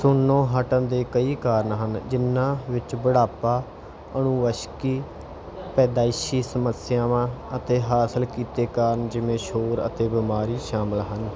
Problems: none marked